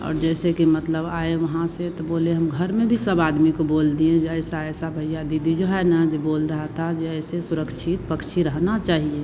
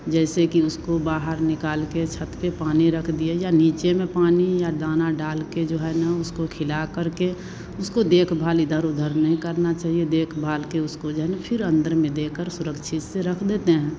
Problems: constant background noise